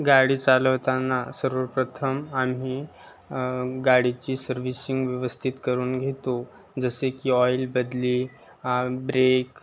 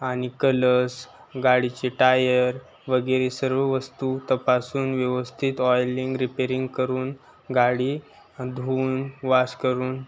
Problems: constant background noise, background conversations at intervals